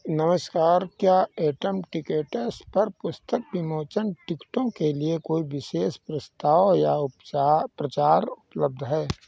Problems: background sounds at intervals